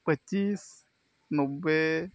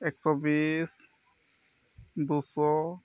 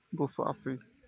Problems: none marked